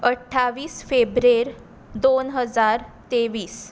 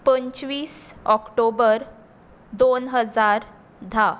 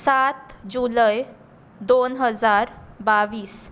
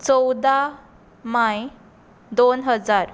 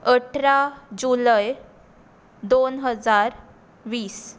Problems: constant background noise